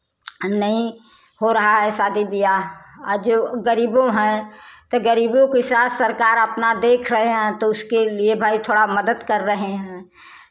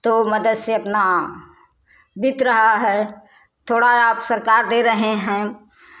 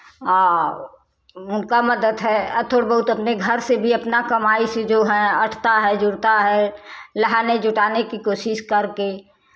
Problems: constant background noise, background conversations at intervals